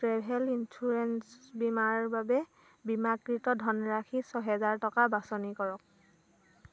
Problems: none marked